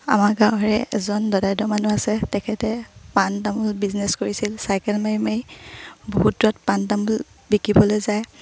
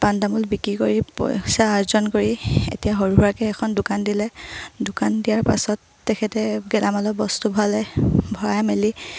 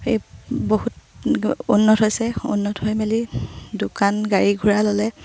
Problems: low volume